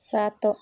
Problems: none marked